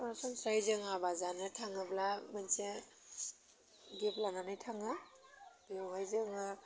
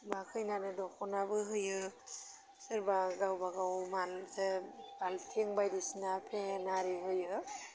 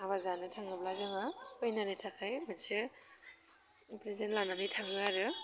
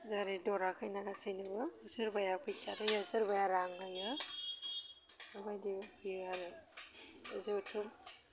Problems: low volume